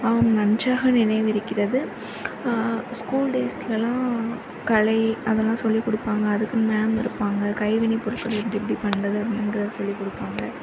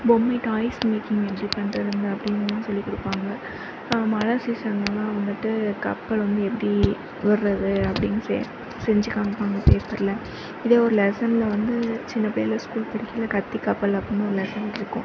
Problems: none marked